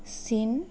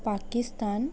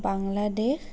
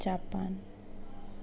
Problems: background conversations at intervals